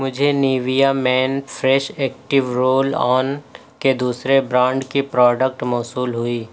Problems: none marked